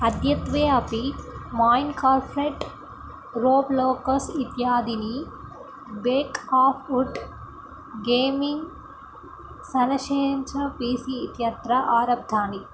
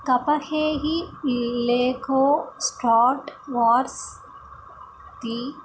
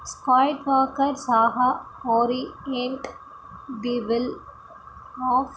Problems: background sounds at intervals